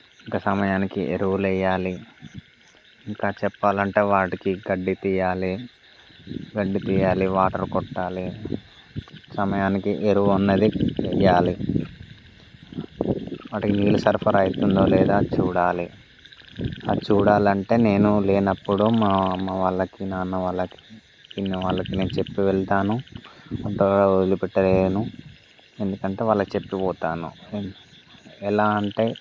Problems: constant background noise